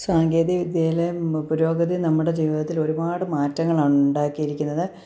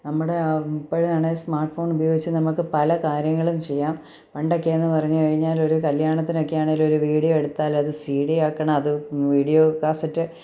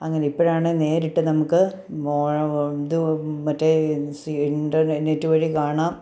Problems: none marked